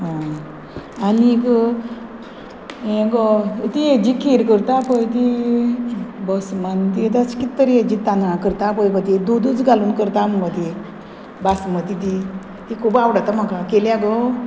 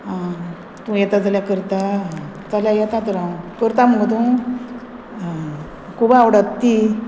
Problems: none marked